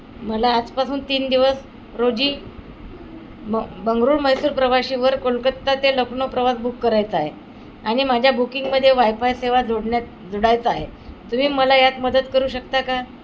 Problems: constant background noise